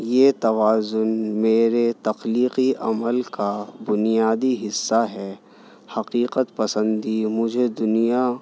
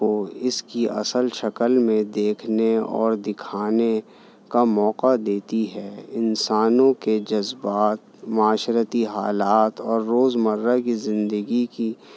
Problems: none marked